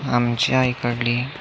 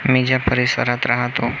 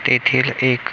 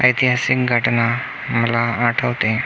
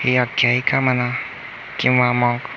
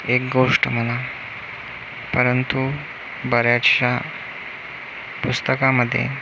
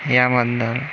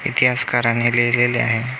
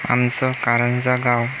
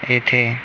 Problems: none marked